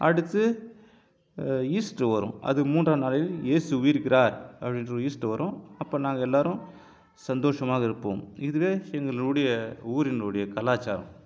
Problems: none marked